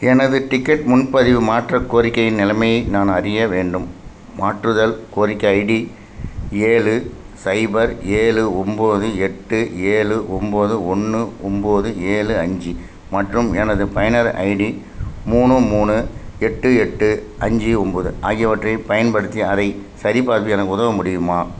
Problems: constant background noise